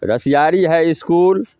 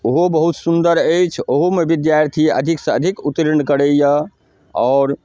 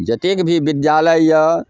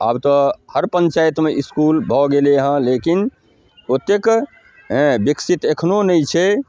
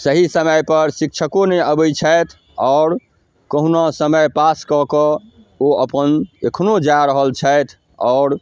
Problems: none marked